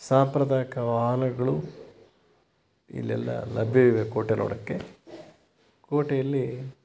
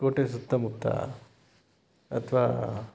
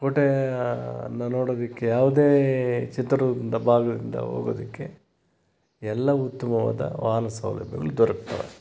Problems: background sounds at intervals